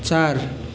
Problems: none marked